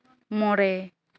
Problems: none marked